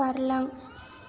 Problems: low volume